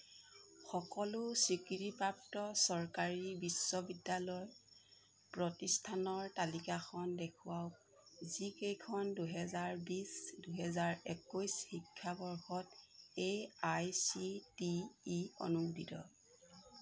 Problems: none marked